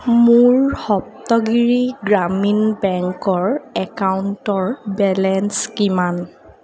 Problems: constant background noise